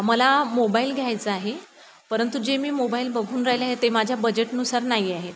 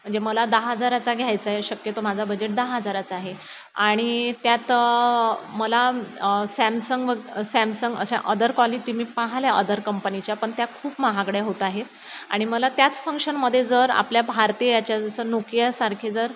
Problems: constant background noise